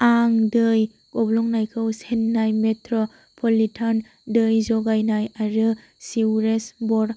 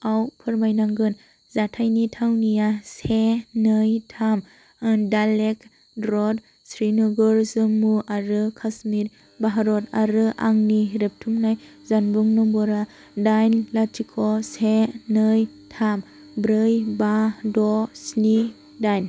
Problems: constant background noise